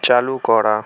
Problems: continuous background conversations